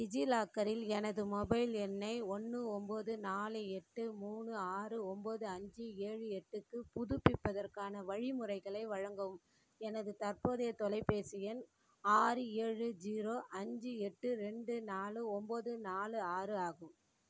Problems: low volume